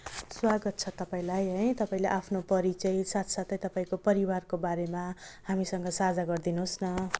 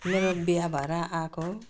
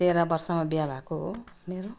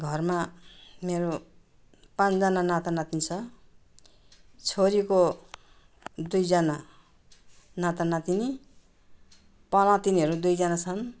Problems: none marked